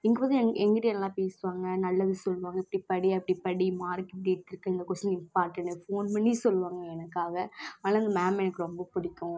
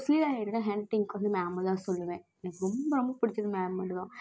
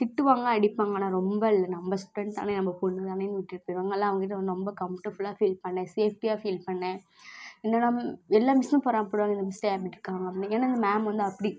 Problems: none marked